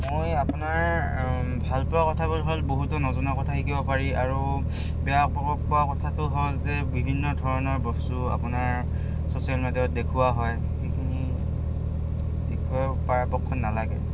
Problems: background sounds at intervals